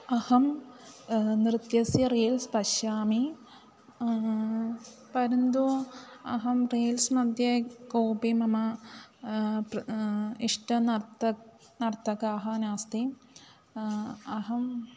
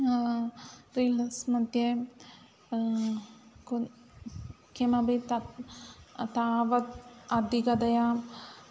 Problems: background sounds at intervals